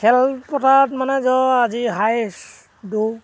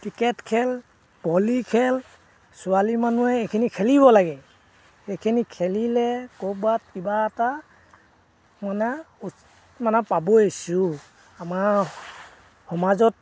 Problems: background sounds at intervals